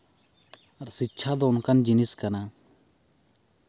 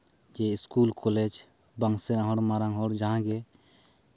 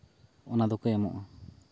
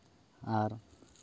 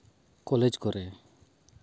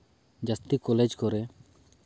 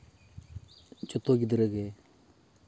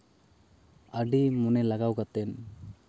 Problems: none marked